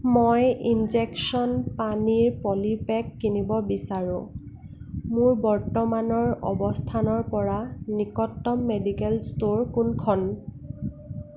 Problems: constant background noise